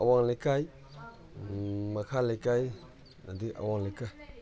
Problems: background sounds at intervals